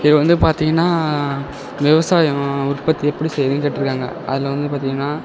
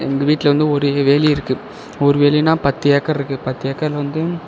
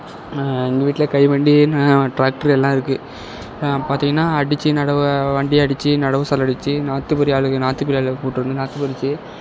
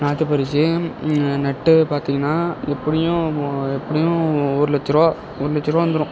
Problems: constant background noise